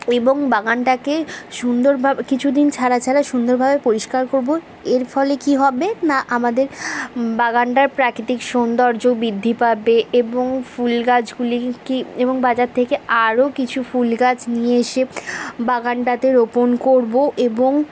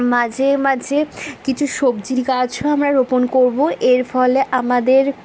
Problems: constant background noise